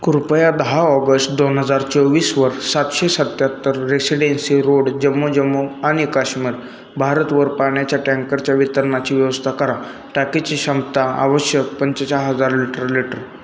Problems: constant background noise, continuous background conversations